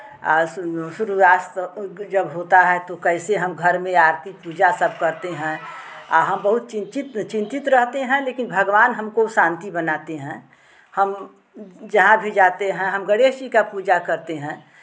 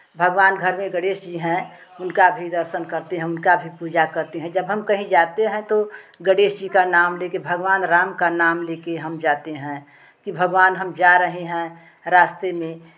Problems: none marked